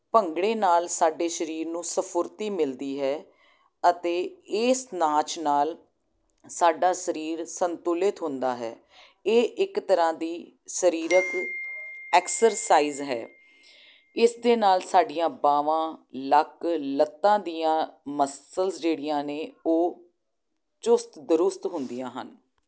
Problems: none marked